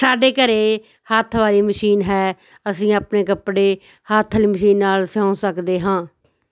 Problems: background conversations at intervals